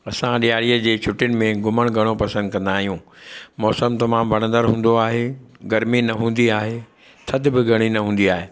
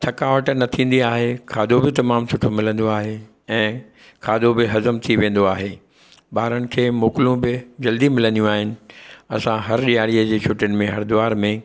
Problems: none marked